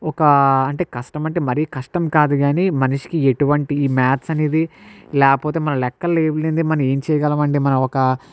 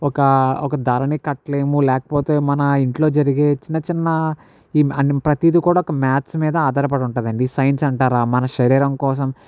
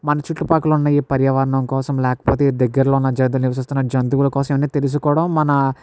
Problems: none marked